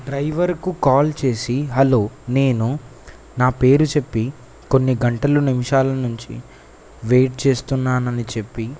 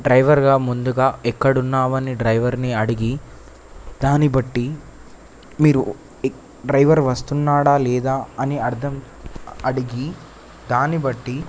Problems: constant background noise